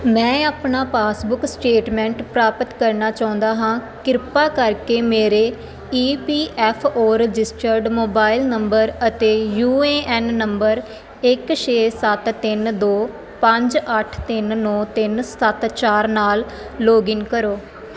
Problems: constant background noise